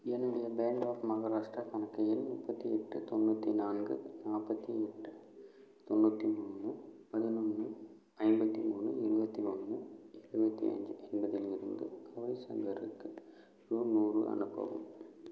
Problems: low volume